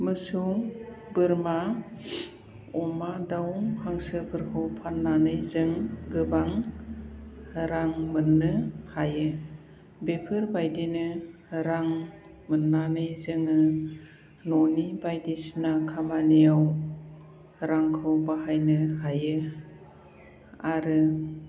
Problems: low volume